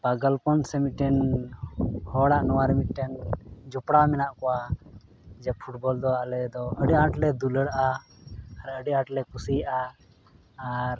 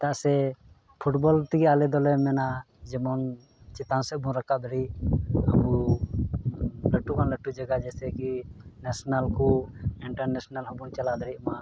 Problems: background sounds at intervals, background conversations at intervals